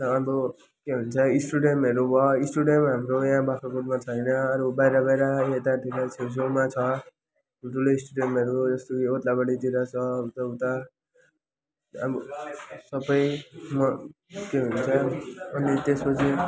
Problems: constant background noise, continuous background conversations